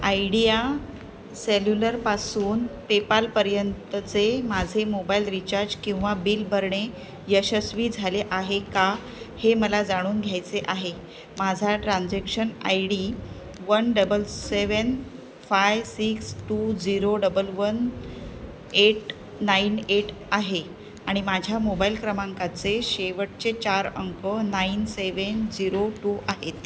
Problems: none marked